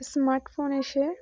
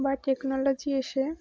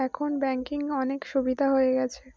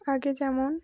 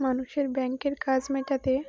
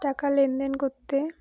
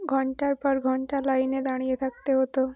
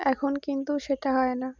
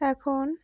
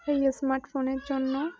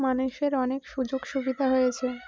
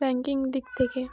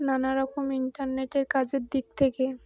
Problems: none marked